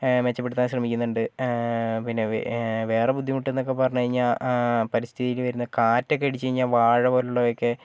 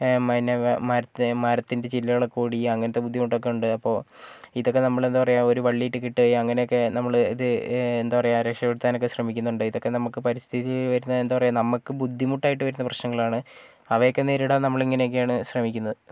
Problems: none marked